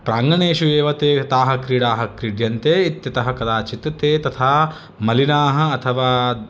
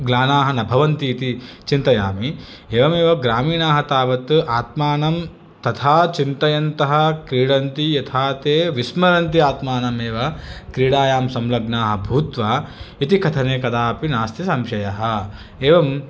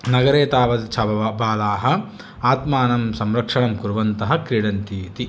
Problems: none marked